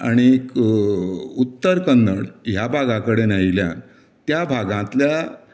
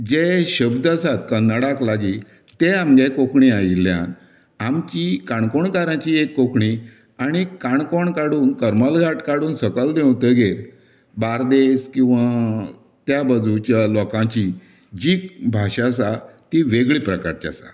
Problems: none marked